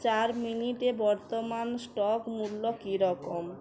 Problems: background sounds at intervals, background conversations at intervals